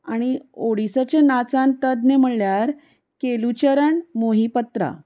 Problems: none marked